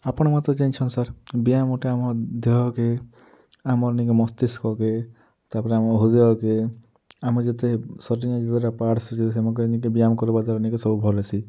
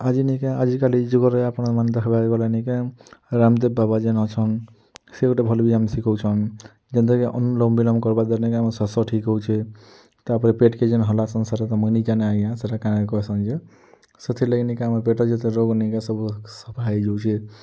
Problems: low volume